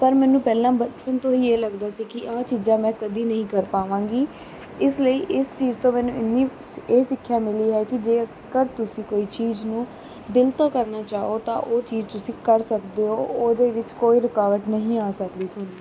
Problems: constant background noise